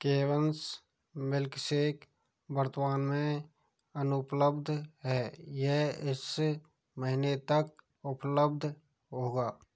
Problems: none marked